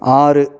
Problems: none marked